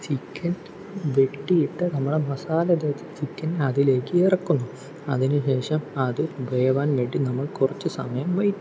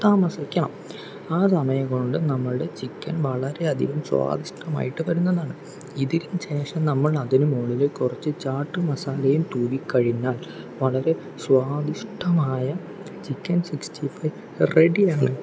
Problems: background sounds at intervals